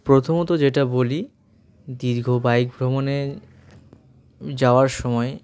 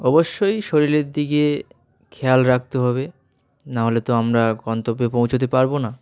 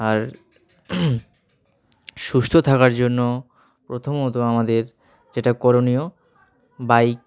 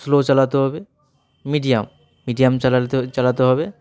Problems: background sounds at intervals